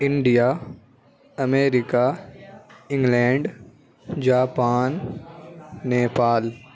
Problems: none marked